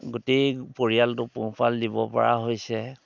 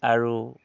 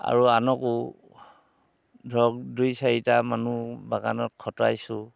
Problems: background sounds at intervals